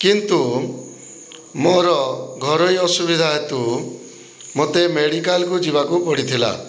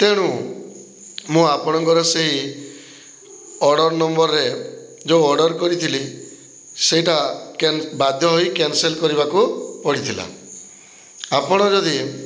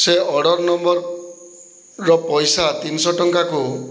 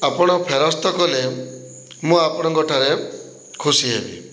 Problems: low volume